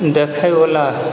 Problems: constant background noise